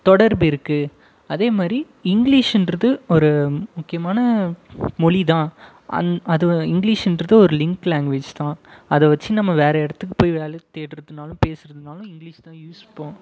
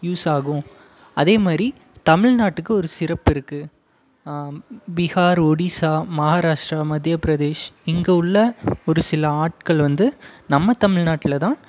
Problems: background sounds at intervals